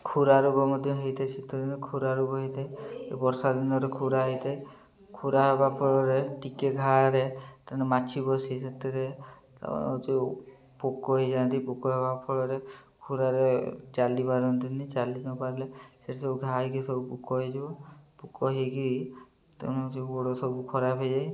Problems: low volume